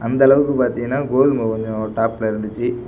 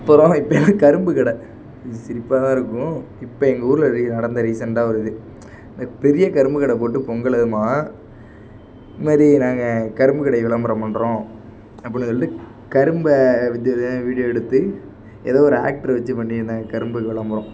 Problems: background sounds at intervals